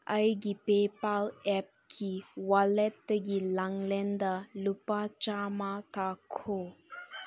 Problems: background sounds at intervals